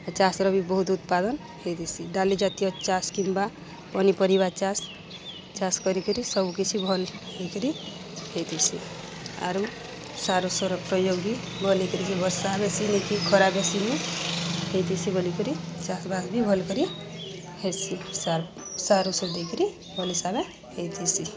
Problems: constant background noise, continuous background conversations